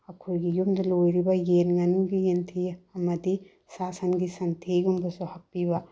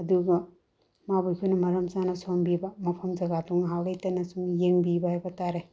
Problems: low volume